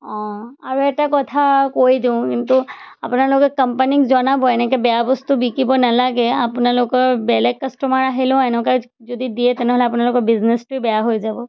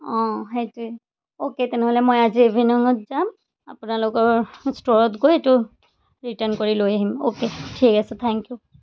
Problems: background sounds at intervals